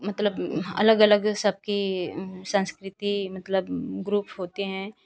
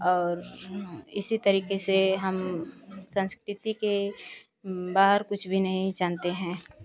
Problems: constant background noise